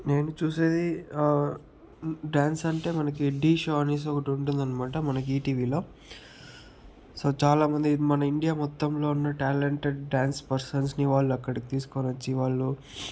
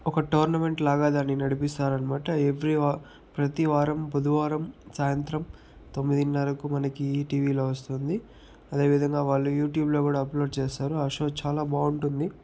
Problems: none marked